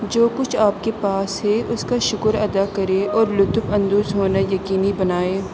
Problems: constant background noise